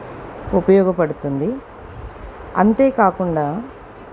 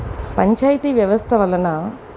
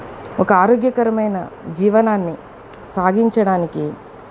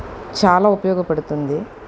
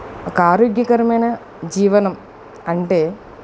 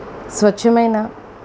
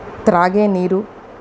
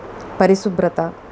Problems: constant background noise, background conversations at intervals